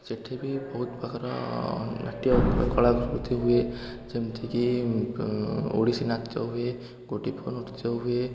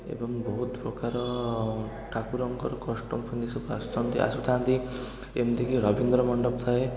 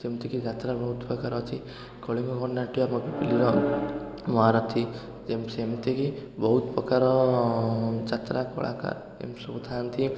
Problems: constant background noise, continuous background conversations